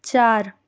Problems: constant background noise